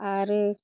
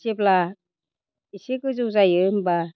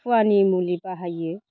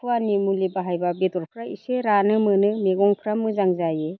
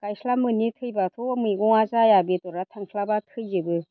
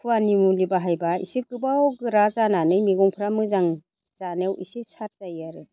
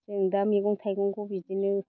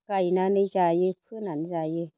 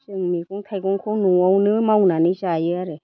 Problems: constant background noise